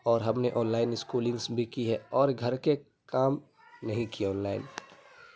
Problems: background sounds at intervals, background conversations at intervals